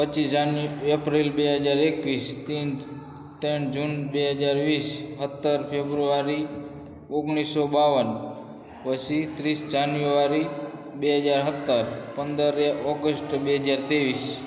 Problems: continuous background conversations